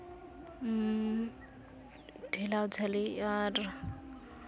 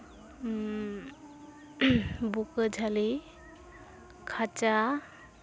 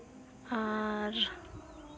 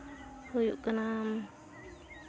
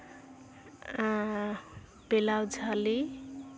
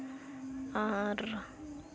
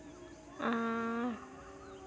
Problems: none marked